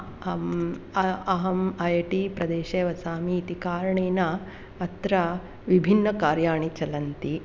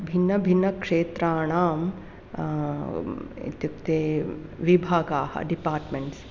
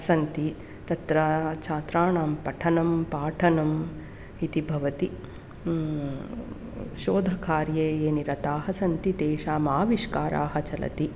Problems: none marked